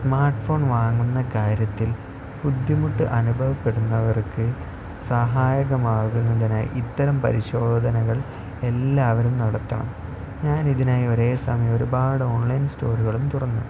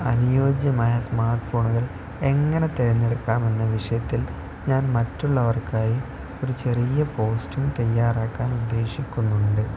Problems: constant background noise, low volume